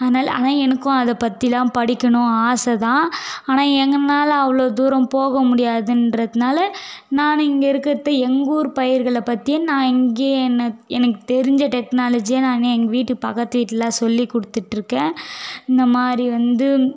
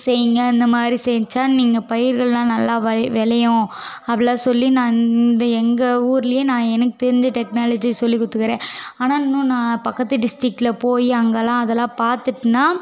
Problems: background conversations at intervals